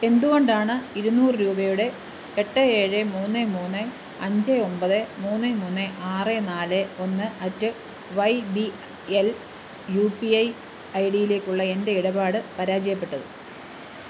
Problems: constant background noise